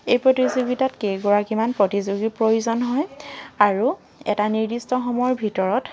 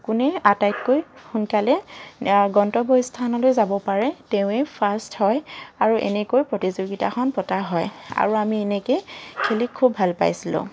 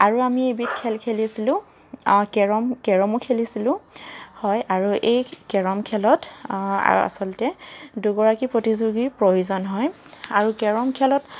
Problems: constant background noise